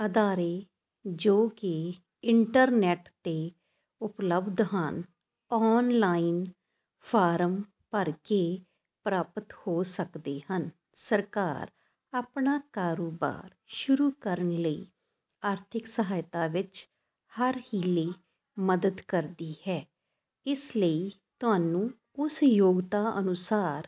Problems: constant background noise